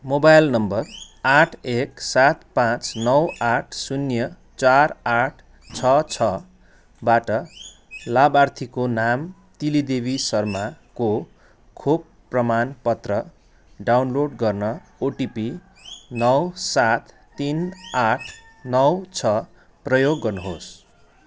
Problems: constant background noise